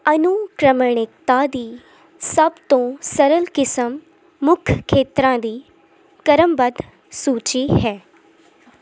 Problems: constant background noise